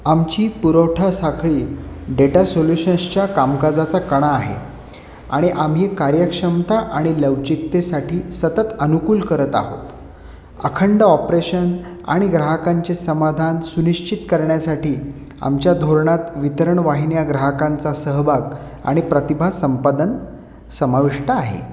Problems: constant background noise